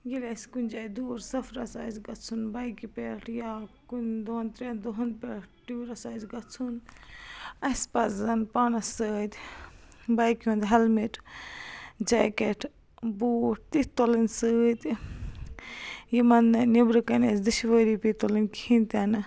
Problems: constant background noise